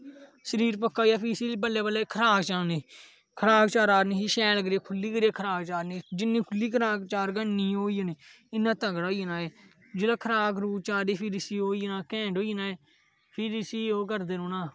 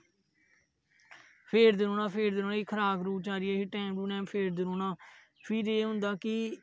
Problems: none marked